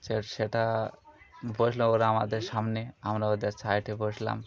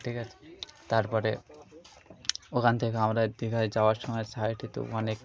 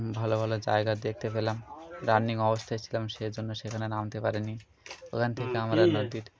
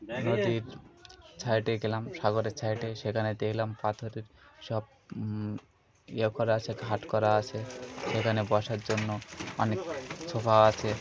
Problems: constant background noise, continuous background conversations